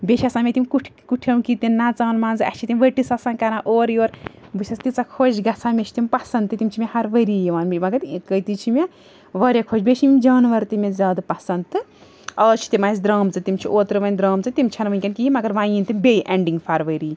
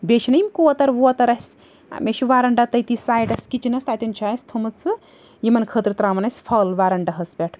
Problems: background sounds at intervals